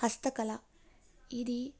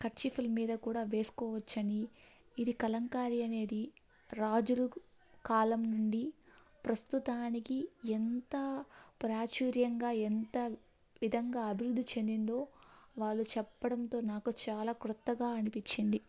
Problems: none marked